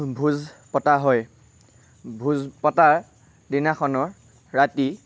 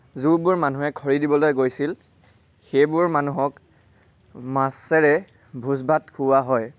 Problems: none marked